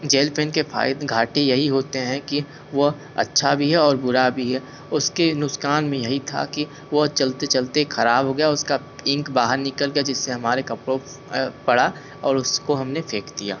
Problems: constant background noise